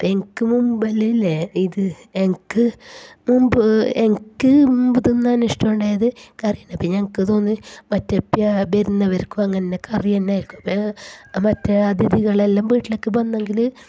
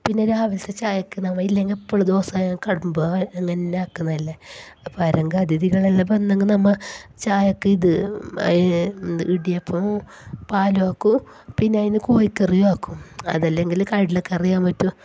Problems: background sounds at intervals, low volume